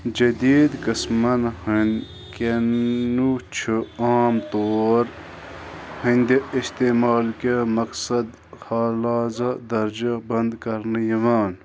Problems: constant background noise